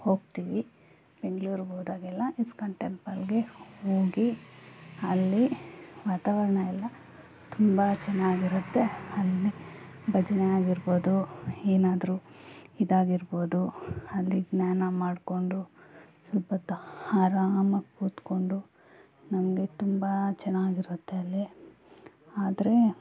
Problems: none marked